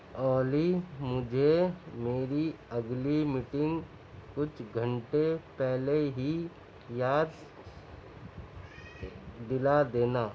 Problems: constant background noise